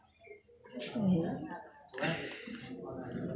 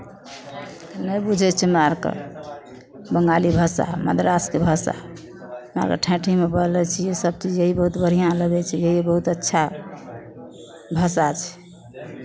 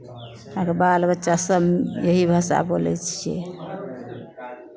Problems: background conversations at intervals